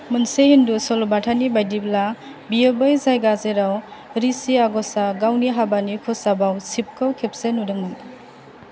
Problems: none marked